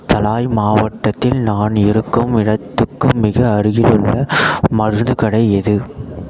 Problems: none marked